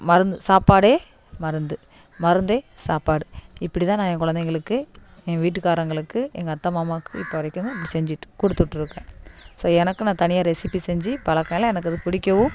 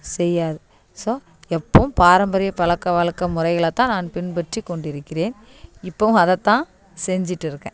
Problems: background sounds at intervals